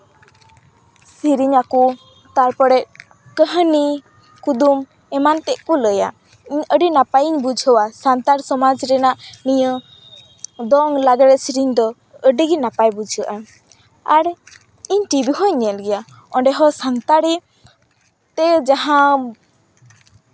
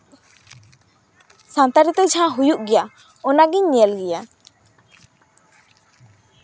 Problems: background sounds at intervals